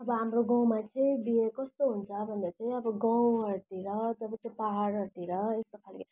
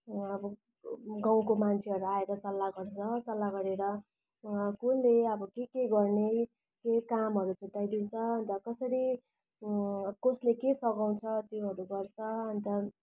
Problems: none marked